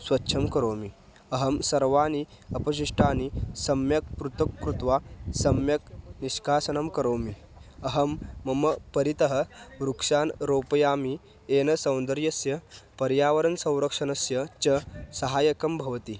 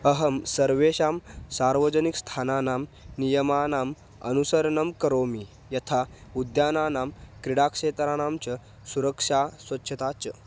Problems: background sounds at intervals